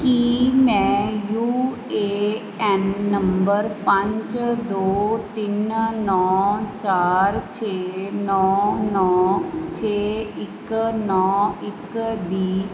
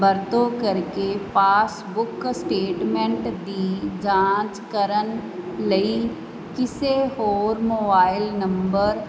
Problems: constant background noise